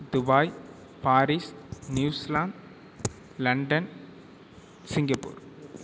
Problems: none marked